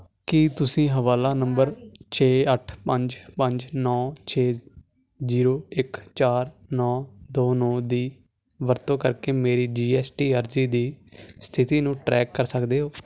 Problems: constant background noise